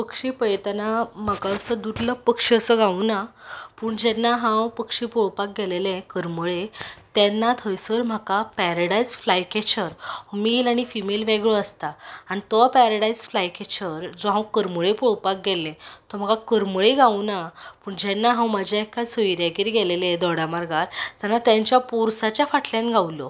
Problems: background sounds at intervals